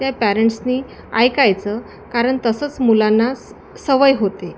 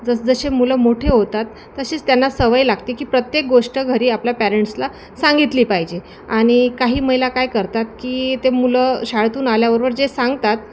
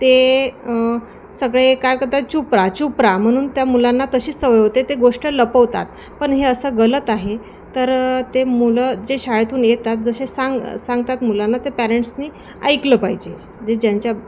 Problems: constant background noise, background conversations at intervals